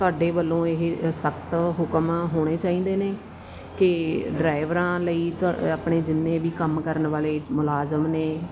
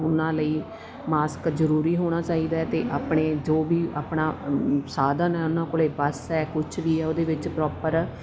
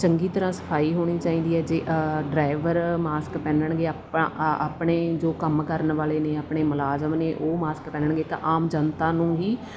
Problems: background sounds at intervals